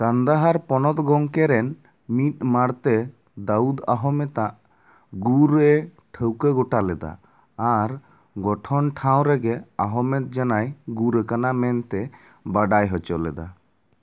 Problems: none marked